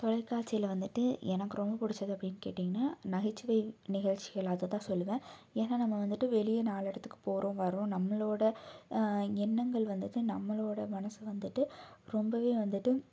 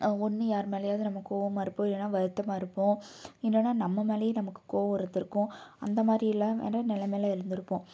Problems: none marked